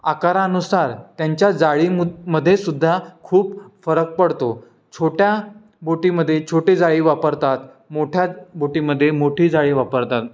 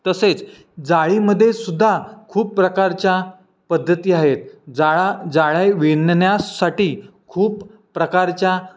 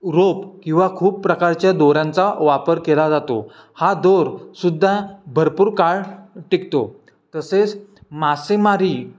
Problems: constant background noise